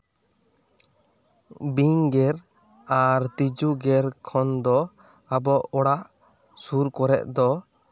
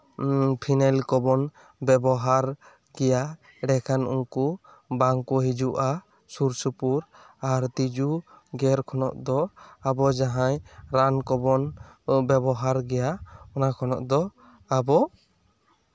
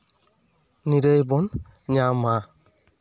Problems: none marked